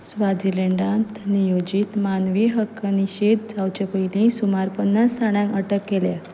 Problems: none marked